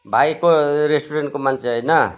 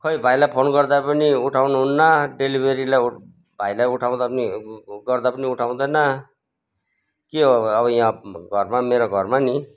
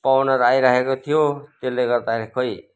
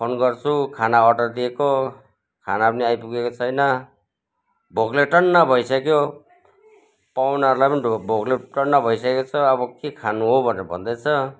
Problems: background sounds at intervals